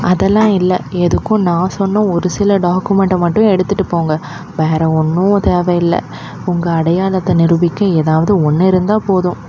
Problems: constant background noise